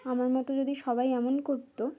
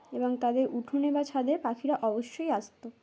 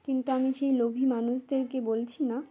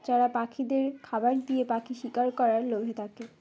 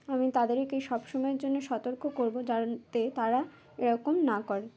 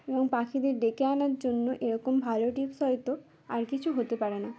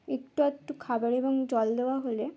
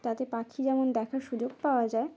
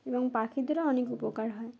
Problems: background sounds at intervals, background conversations at intervals